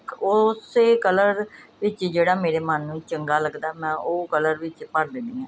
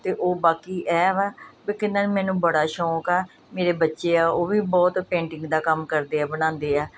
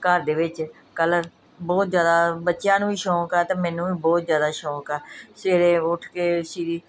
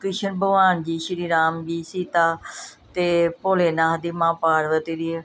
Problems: none marked